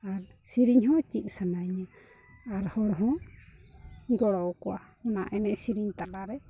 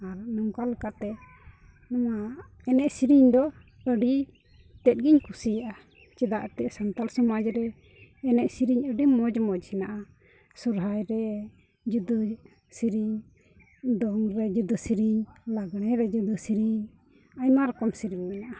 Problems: none marked